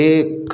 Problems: background sounds at intervals